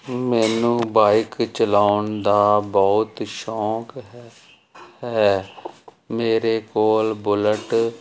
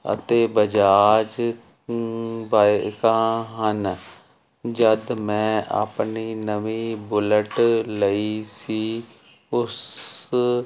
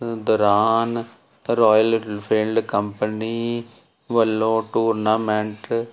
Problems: constant background noise